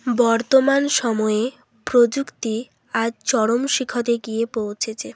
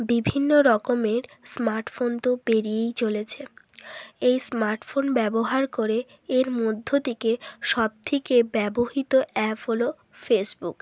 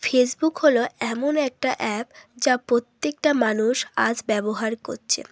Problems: constant background noise